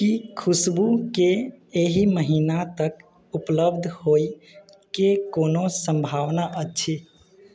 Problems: background sounds at intervals